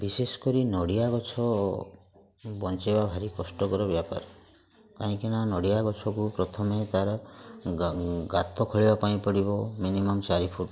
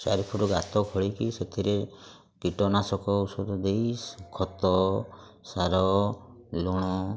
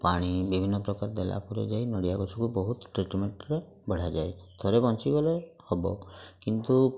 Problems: constant background noise, continuous background conversations